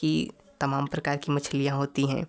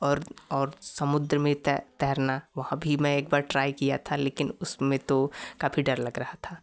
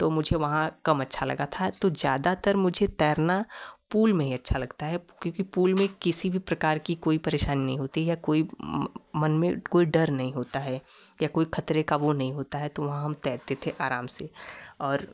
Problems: none marked